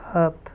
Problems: none marked